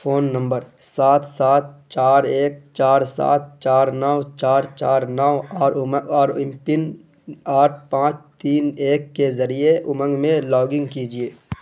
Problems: constant background noise